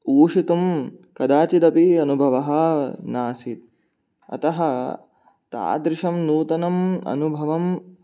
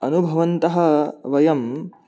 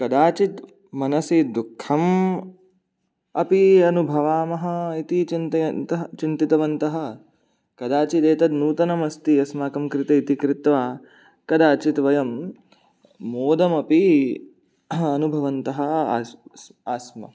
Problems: none marked